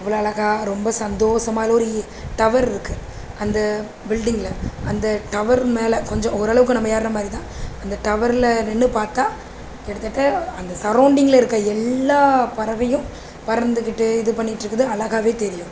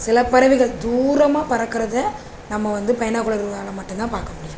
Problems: constant background noise